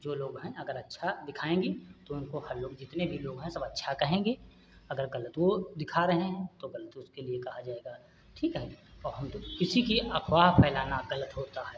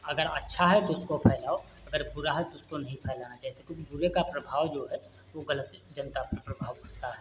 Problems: constant background noise